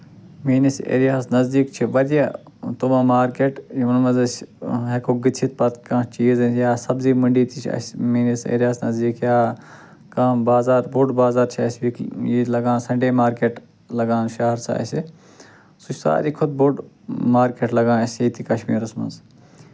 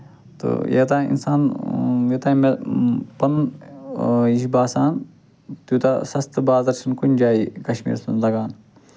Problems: constant background noise